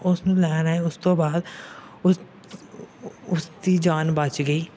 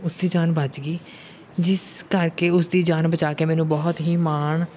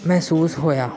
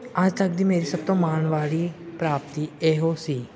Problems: background sounds at intervals, background conversations at intervals